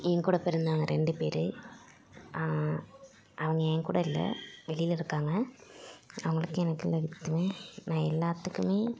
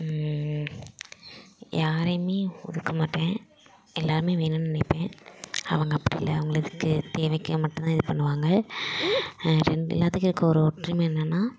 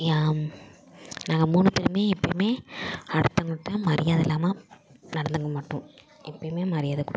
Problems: constant background noise, background conversations at intervals